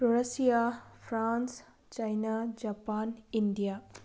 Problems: none marked